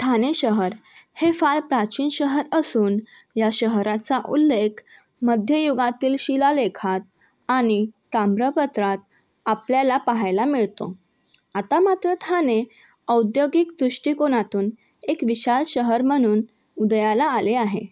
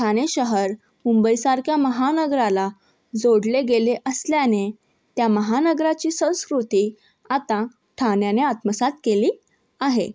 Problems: background sounds at intervals, background conversations at intervals